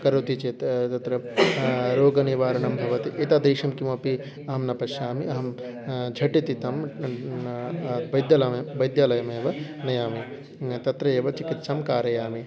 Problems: background sounds at intervals